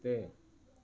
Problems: constant background noise